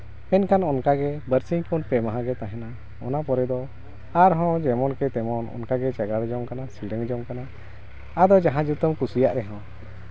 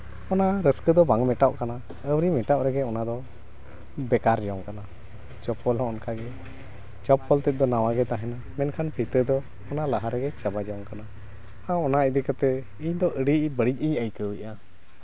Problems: constant background noise